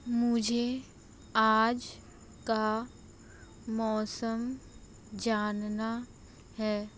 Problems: low volume